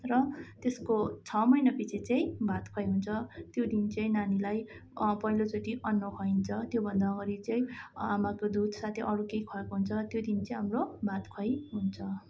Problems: none marked